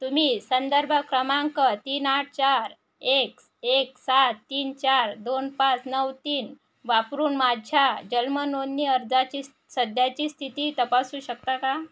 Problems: none marked